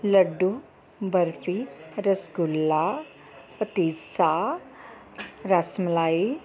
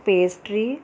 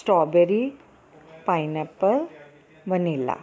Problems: continuous background conversations